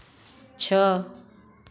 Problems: constant background noise